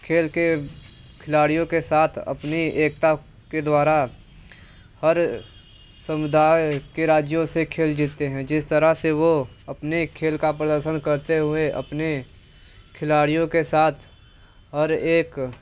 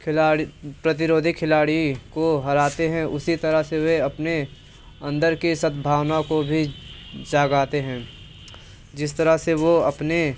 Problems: constant background noise